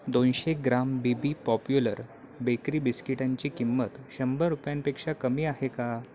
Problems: constant background noise, continuous background conversations